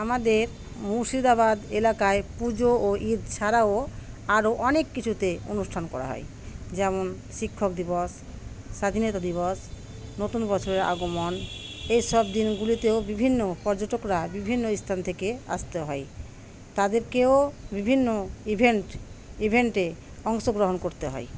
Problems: constant background noise